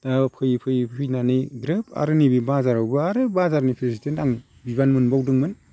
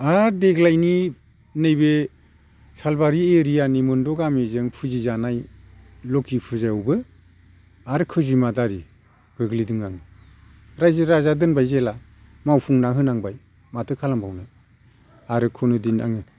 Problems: constant background noise